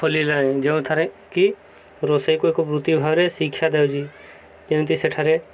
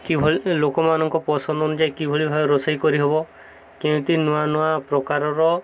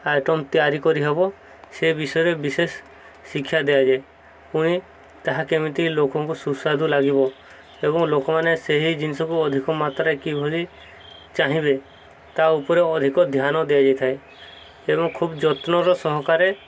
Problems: none marked